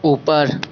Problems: none marked